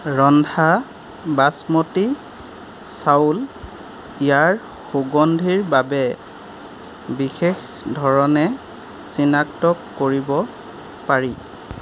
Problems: none marked